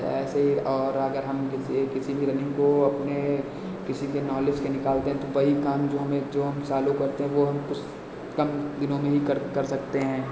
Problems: constant background noise, echo